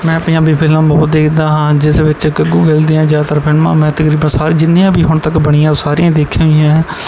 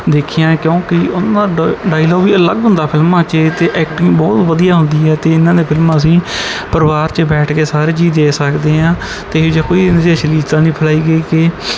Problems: background sounds at intervals